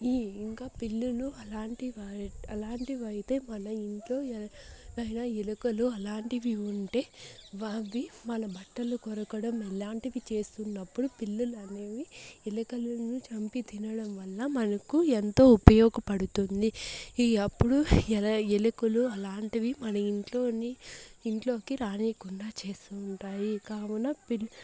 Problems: none marked